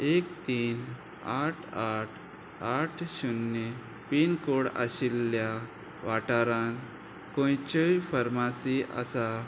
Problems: constant background noise